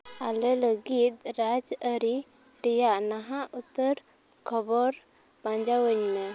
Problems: background sounds at intervals